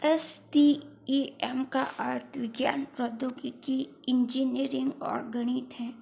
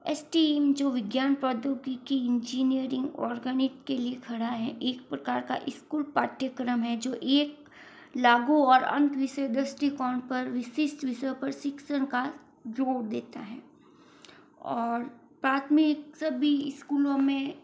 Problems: low volume